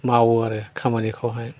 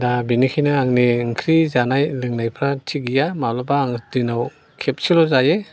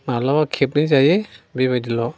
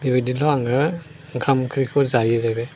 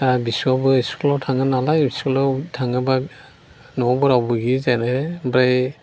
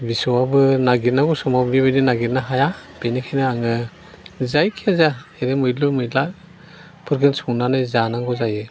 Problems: constant background noise